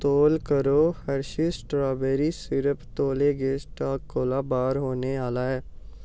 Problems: none marked